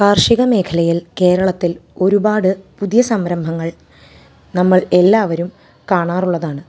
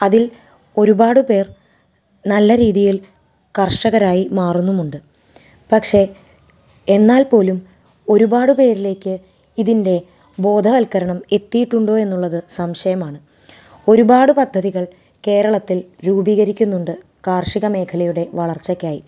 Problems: background sounds at intervals